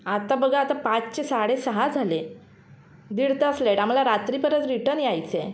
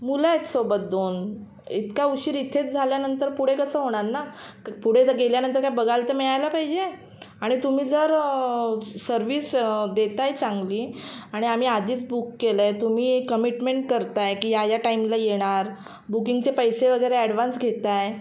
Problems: none marked